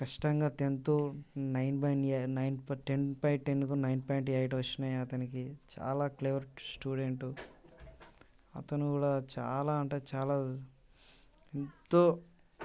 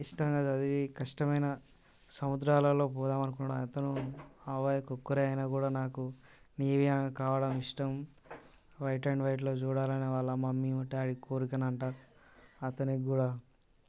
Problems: constant background noise